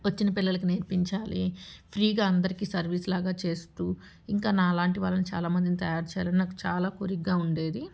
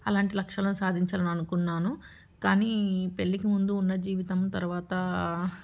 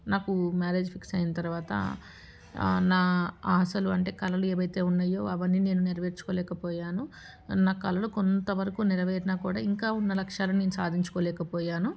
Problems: background sounds at intervals